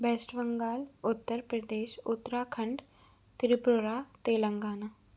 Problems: constant background noise